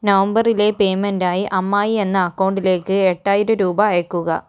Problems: none marked